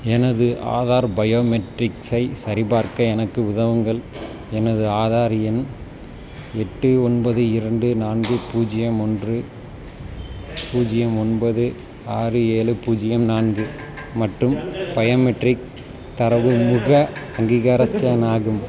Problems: none marked